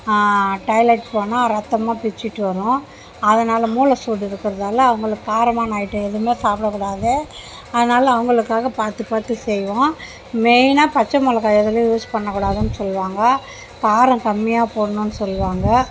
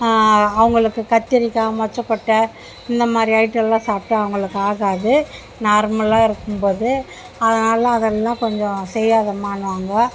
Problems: background sounds at intervals, background conversations at intervals